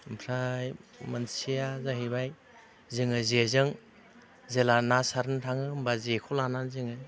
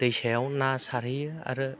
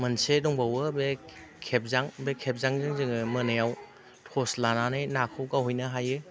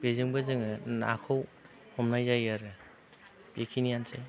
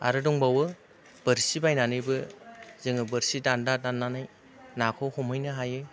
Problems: constant background noise